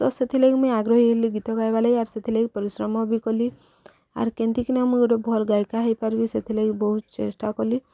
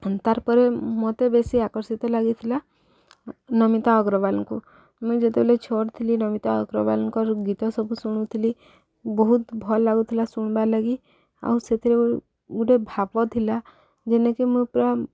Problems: background sounds at intervals, background conversations at intervals